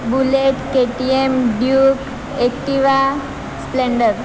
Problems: constant background noise